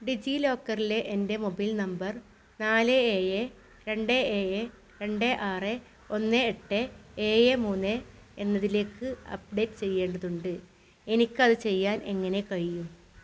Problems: none marked